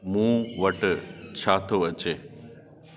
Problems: constant background noise, echo